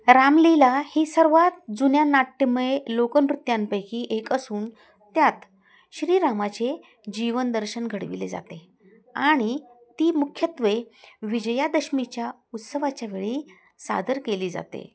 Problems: constant background noise, continuous background conversations